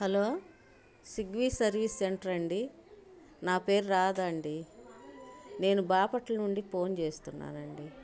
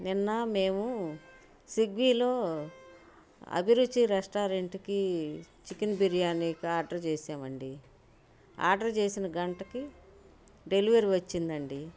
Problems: none marked